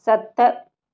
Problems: none marked